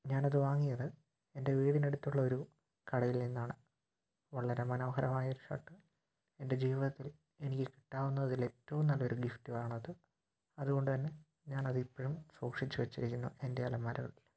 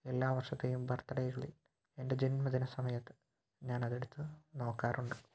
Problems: low volume